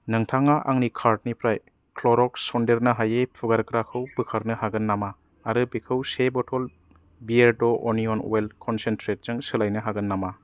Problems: low volume